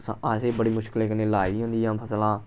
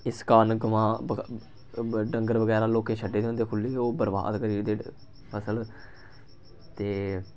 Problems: background sounds at intervals